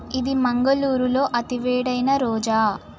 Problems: none marked